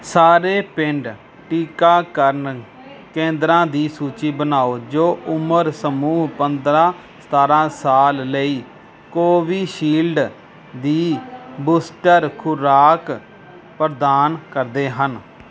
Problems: constant background noise